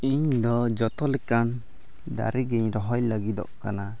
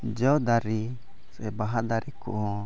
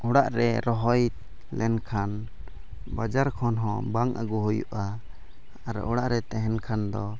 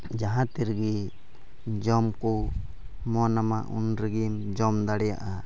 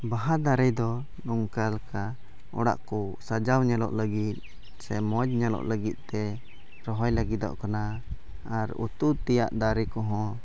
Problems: constant background noise, low volume